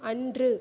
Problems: low volume